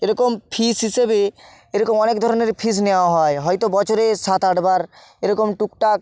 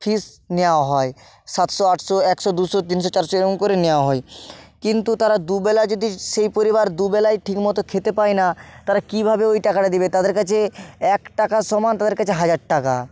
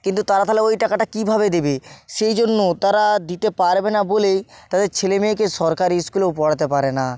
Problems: constant background noise